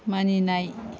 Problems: constant background noise